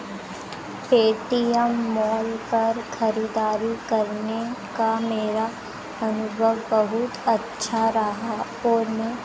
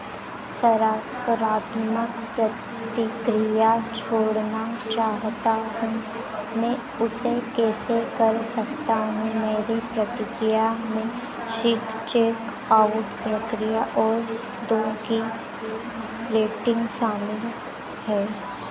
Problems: background sounds at intervals